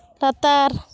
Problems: constant background noise